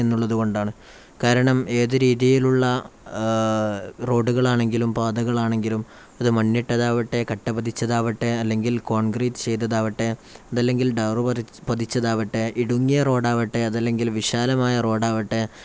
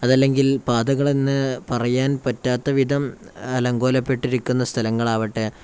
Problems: none marked